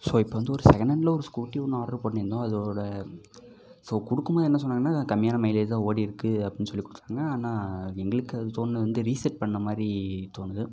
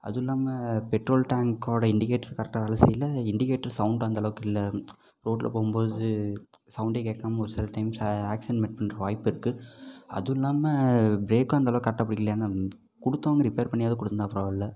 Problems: background sounds at intervals